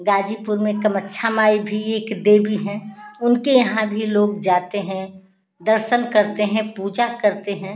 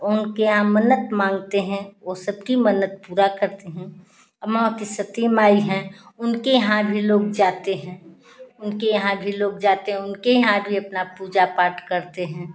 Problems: none marked